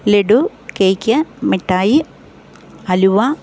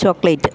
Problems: background conversations at intervals